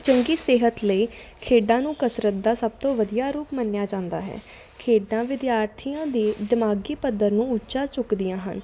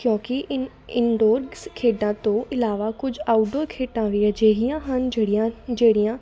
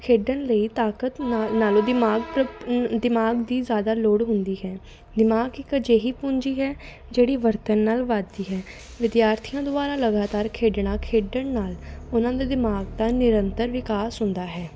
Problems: none marked